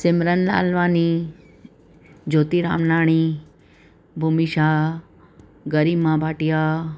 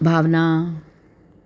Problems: constant background noise